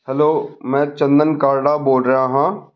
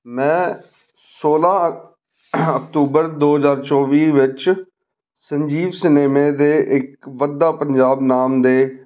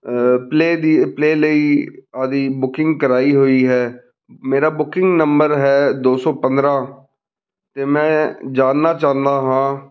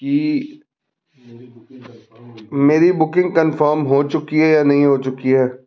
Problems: background conversations at intervals